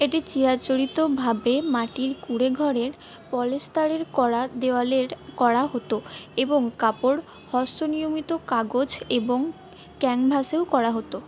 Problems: background sounds at intervals